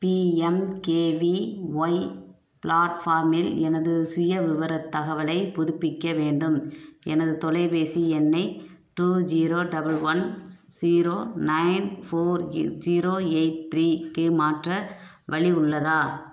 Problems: none marked